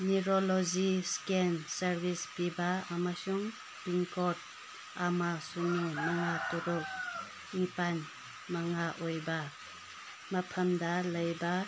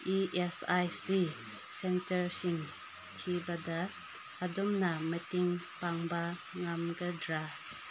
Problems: constant background noise